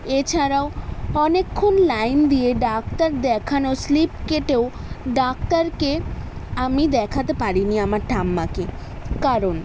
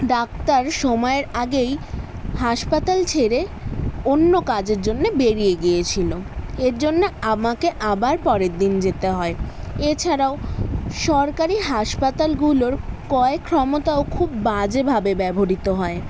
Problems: constant background noise, background conversations at intervals